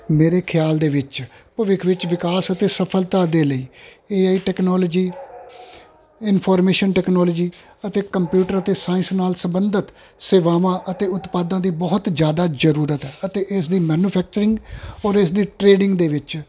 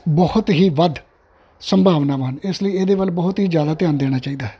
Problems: constant background noise